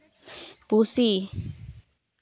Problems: none marked